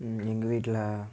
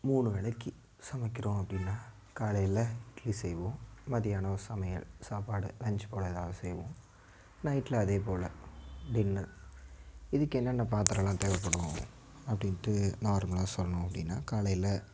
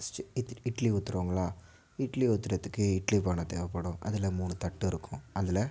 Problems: none marked